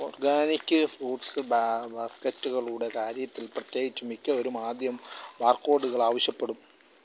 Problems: background sounds at intervals